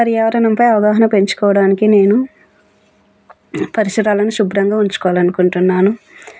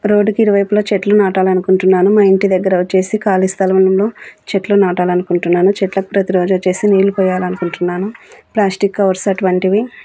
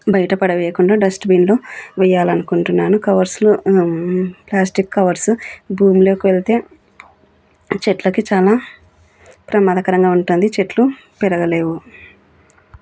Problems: background conversations at intervals